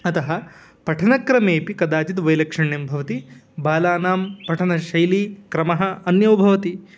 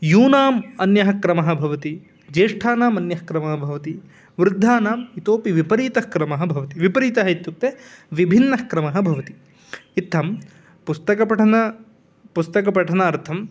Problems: background sounds at intervals